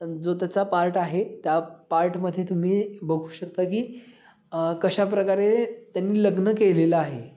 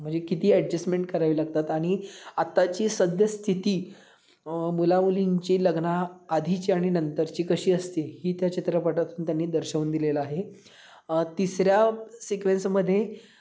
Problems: background sounds at intervals